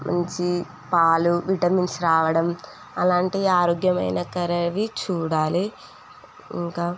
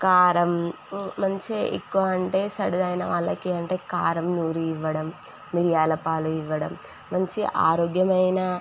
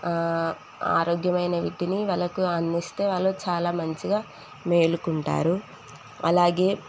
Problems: none marked